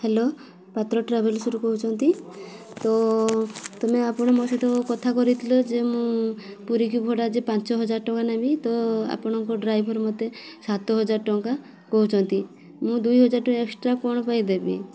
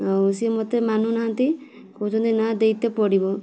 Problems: constant background noise